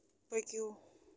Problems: none marked